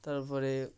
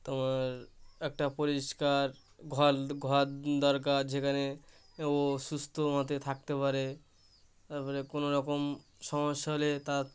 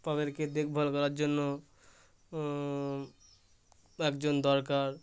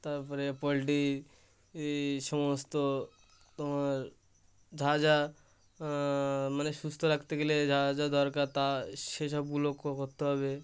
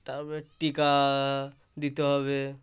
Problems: constant background noise